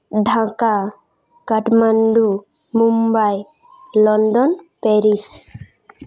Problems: background sounds at intervals